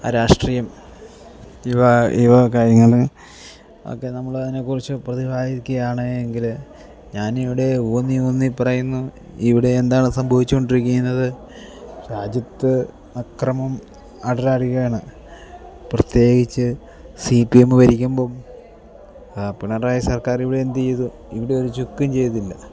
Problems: low volume